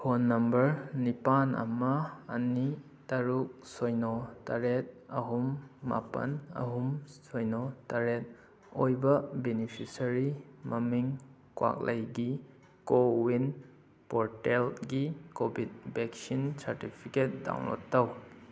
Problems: background sounds at intervals